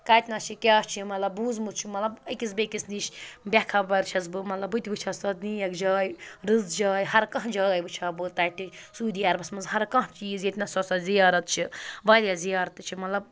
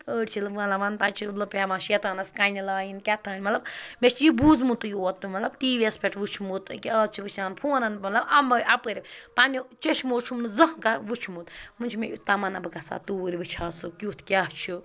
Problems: background sounds at intervals